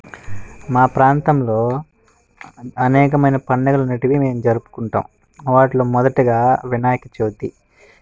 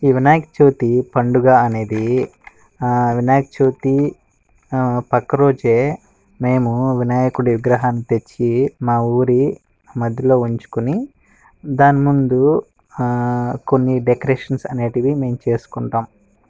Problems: background sounds at intervals